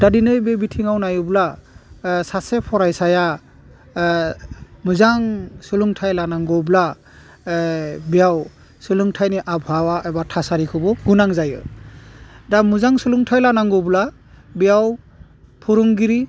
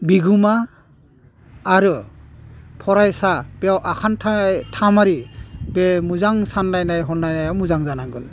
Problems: none marked